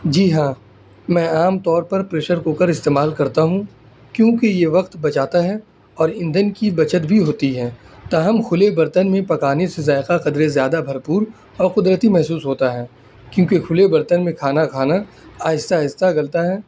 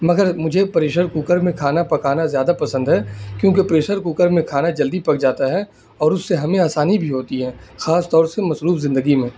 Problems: constant background noise